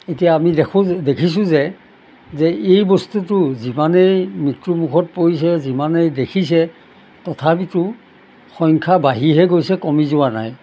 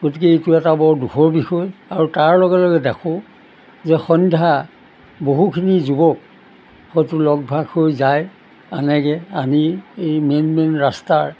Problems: background sounds at intervals